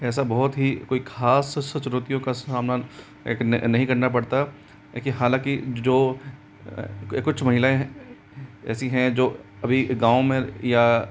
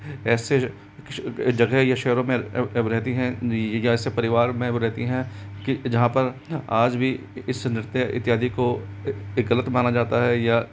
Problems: constant background noise